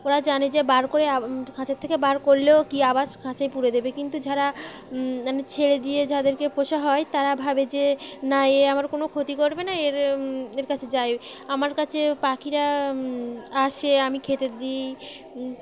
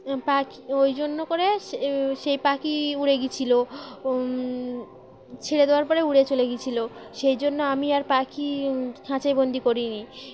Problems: constant background noise, background conversations at intervals